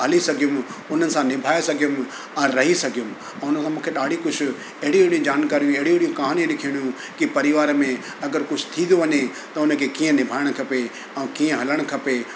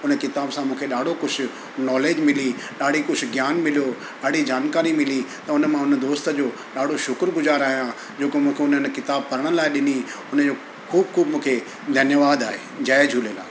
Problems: constant background noise